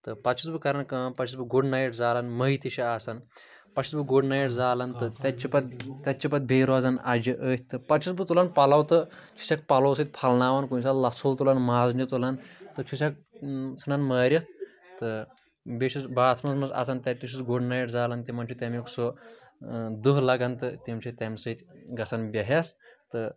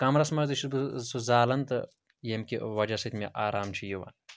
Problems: none marked